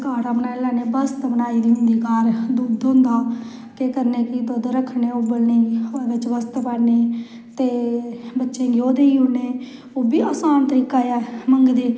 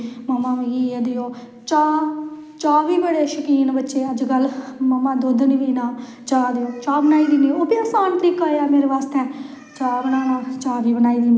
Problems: echo